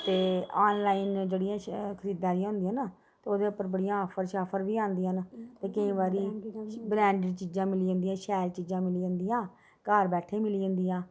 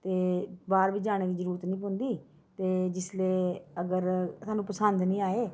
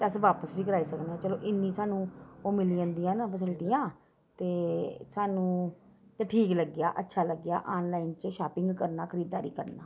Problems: background sounds at intervals